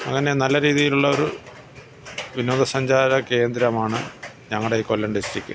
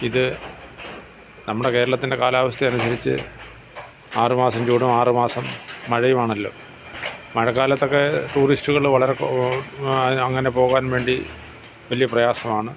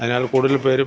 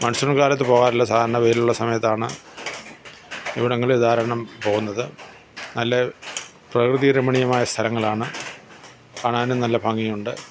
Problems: background sounds at intervals